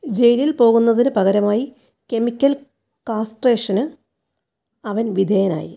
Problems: none marked